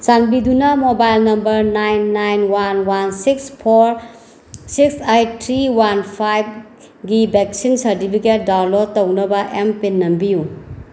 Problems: background sounds at intervals